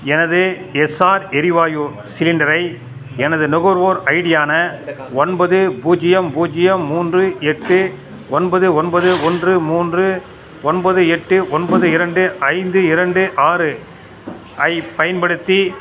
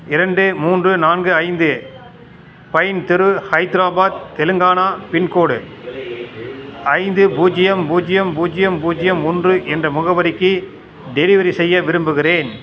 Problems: constant background noise